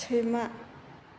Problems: none marked